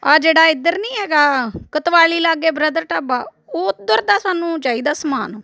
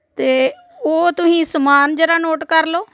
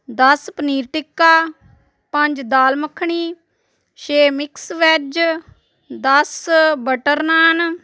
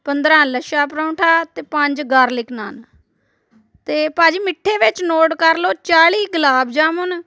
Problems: background sounds at intervals, continuous background conversations